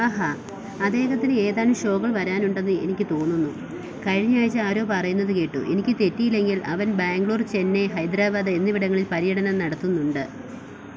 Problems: none marked